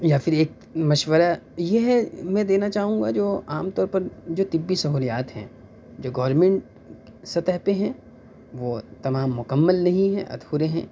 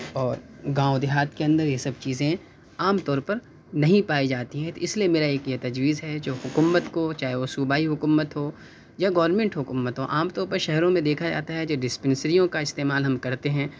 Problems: none marked